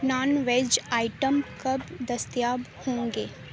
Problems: constant background noise